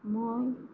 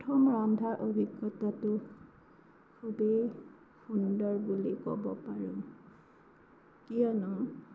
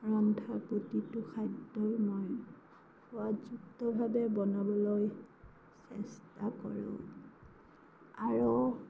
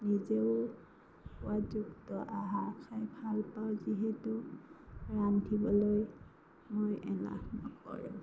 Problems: background sounds at intervals, low volume